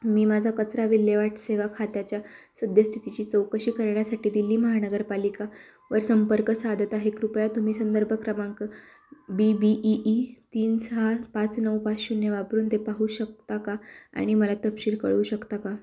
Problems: background sounds at intervals, background conversations at intervals